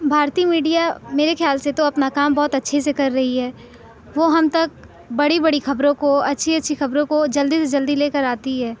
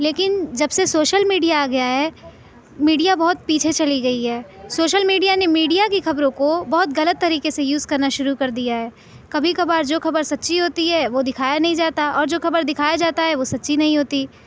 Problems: none marked